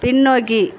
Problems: constant background noise